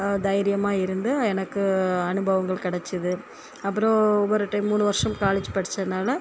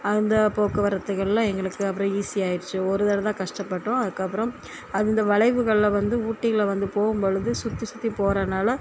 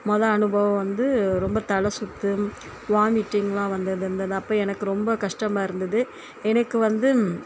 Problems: constant background noise